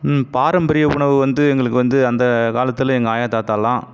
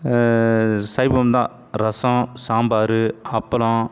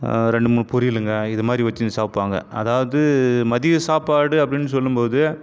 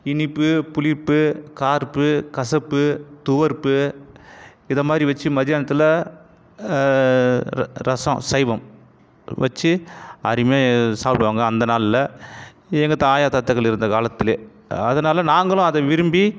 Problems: background sounds at intervals